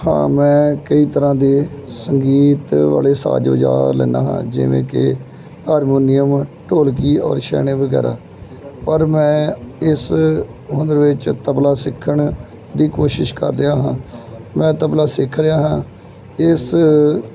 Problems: none marked